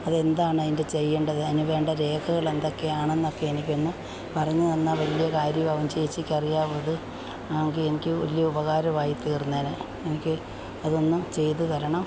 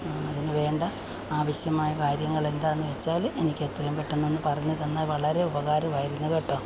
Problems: constant background noise